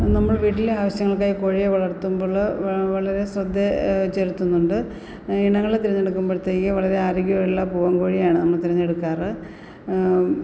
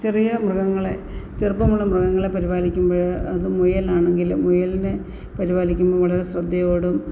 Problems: none marked